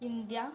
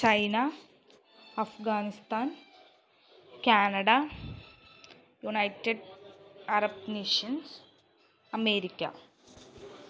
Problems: low volume